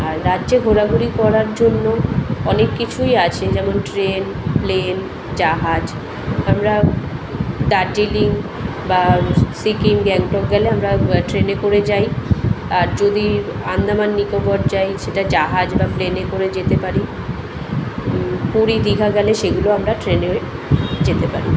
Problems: constant background noise, continuous background conversations